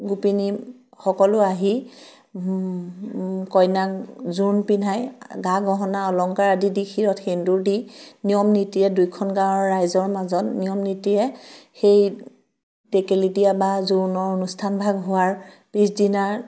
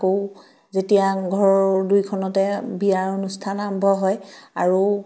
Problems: none marked